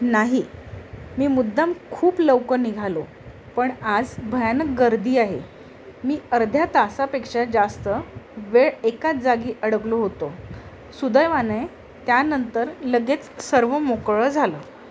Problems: constant background noise